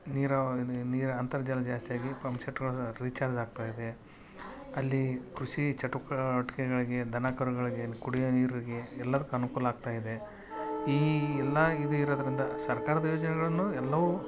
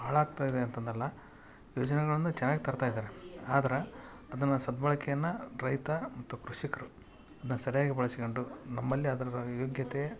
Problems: none marked